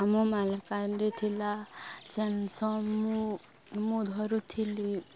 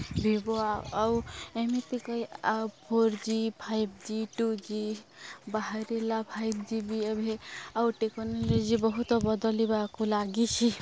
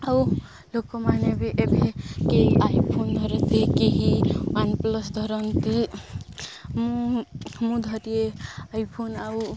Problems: none marked